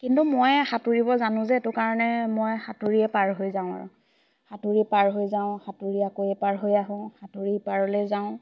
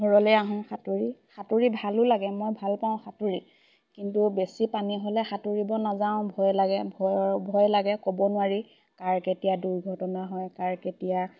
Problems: constant background noise, background conversations at intervals